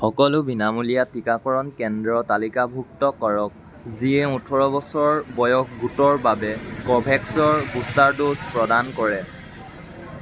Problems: constant background noise